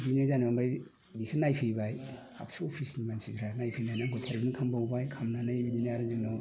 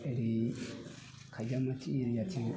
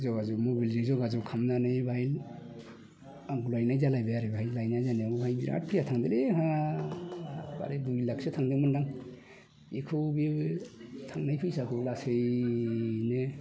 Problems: constant background noise